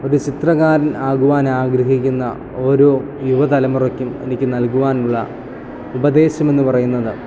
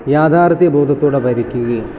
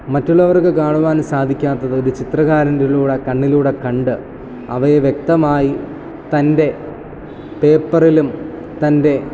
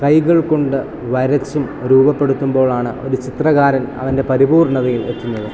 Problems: constant background noise